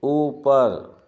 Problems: none marked